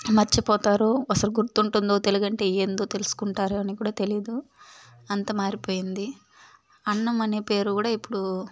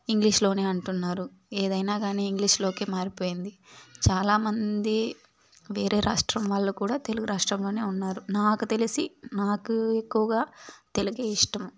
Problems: none marked